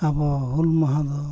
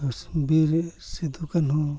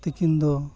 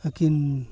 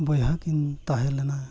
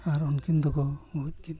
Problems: constant background noise, low volume